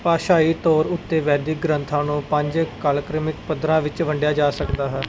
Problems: none marked